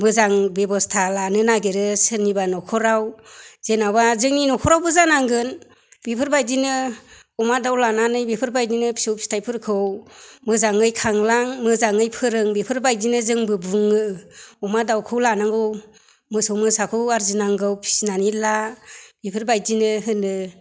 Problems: none marked